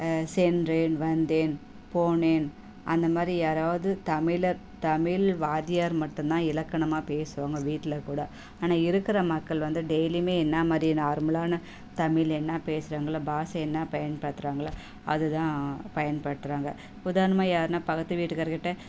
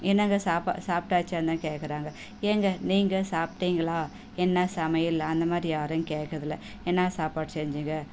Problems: none marked